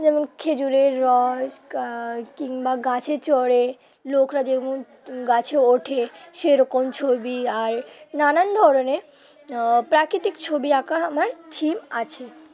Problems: constant background noise, continuous background conversations